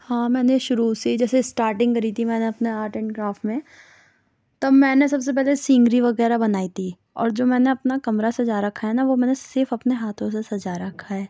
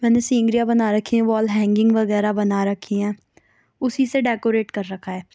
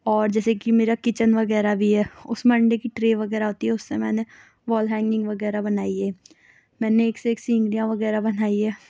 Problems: none marked